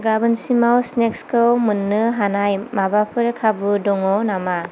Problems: constant background noise